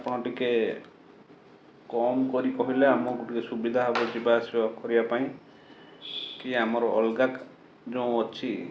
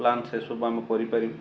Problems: background sounds at intervals